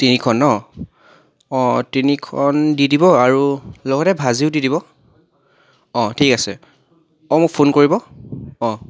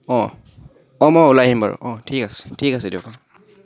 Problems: background sounds at intervals, background conversations at intervals